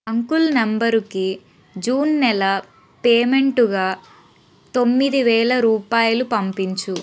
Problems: constant background noise